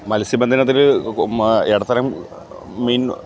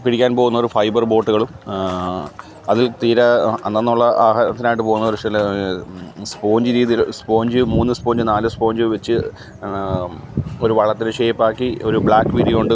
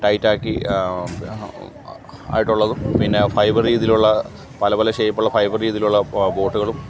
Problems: background sounds at intervals